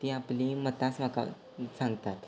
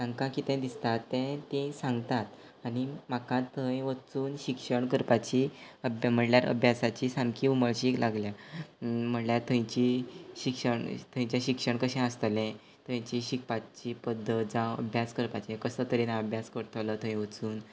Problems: background sounds at intervals